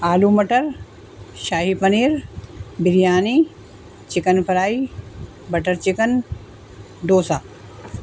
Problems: constant background noise